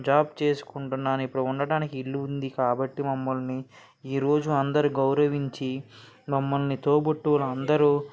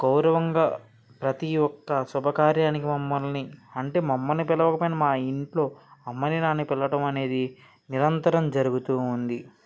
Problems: background conversations at intervals